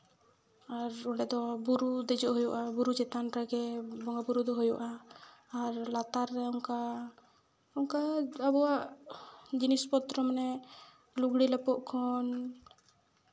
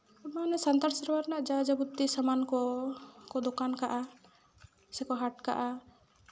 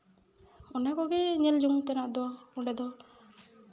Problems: background sounds at intervals, echo